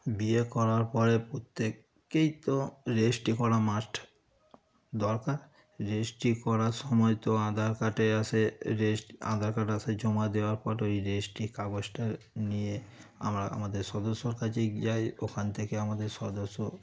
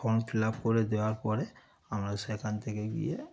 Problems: background sounds at intervals, background conversations at intervals